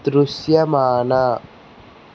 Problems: constant background noise